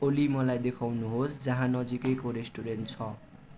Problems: constant background noise